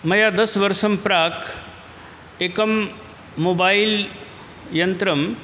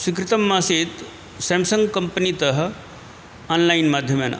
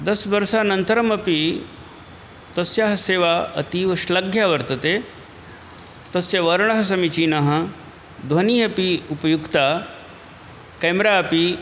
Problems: constant background noise